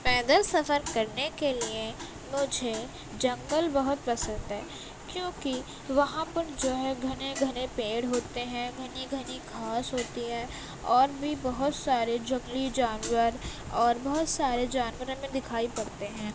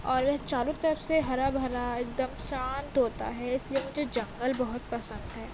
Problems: constant background noise